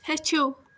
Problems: constant background noise